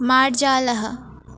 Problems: constant background noise